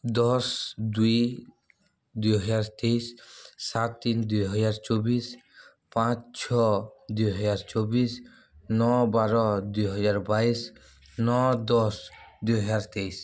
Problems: none marked